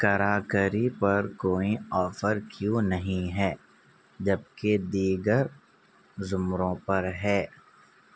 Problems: none marked